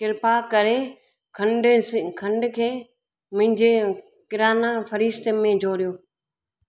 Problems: none marked